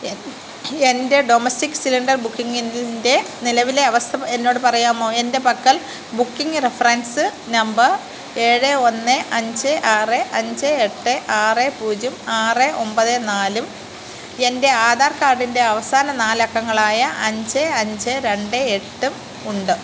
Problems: constant background noise, low volume